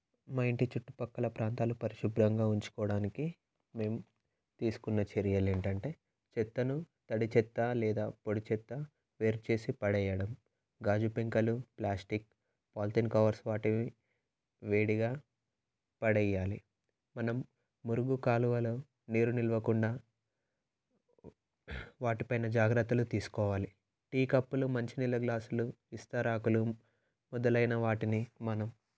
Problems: none marked